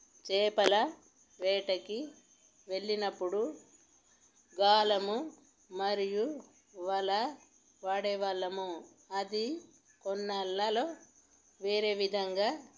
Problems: none marked